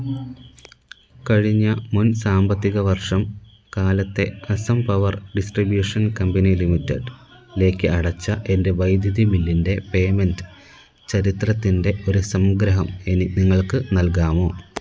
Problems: constant background noise